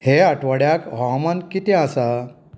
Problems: none marked